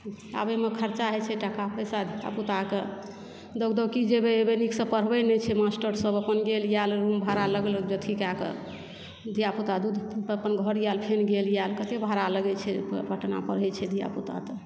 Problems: background sounds at intervals